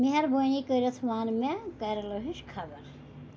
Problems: none marked